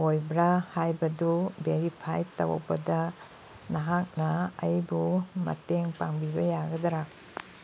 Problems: background sounds at intervals